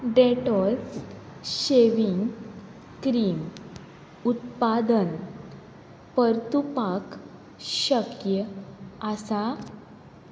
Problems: constant background noise